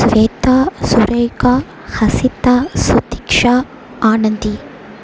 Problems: background sounds at intervals